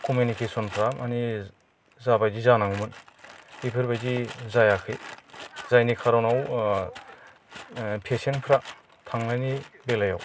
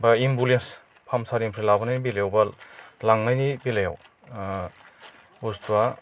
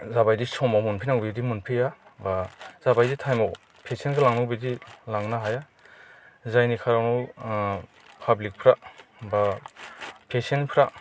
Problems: none marked